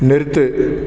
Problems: echo